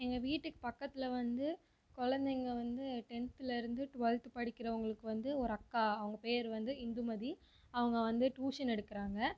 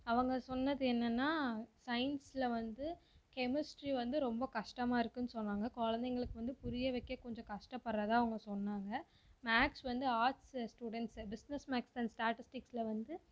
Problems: low volume